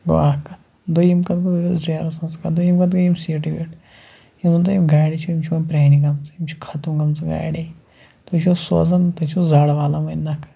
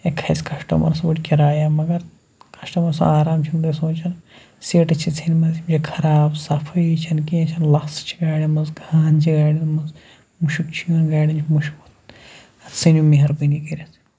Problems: constant background noise